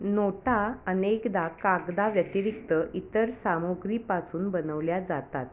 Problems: constant background noise, continuous background conversations